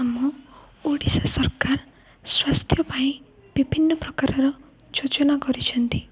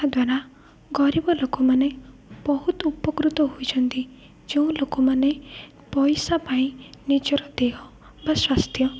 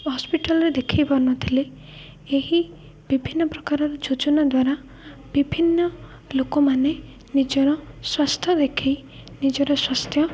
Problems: low volume